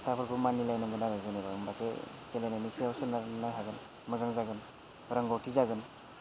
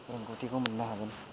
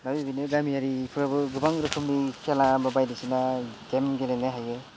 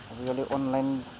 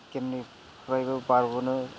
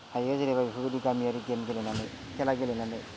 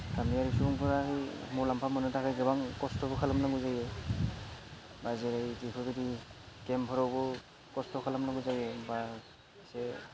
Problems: constant background noise, background conversations at intervals